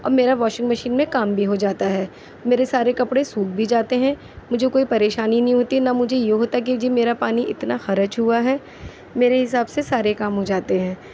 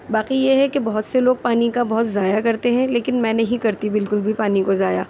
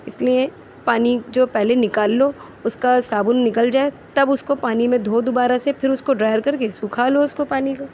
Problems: none marked